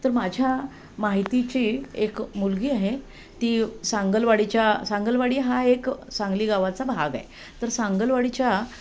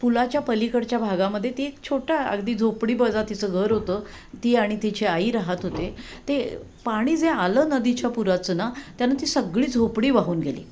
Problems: none marked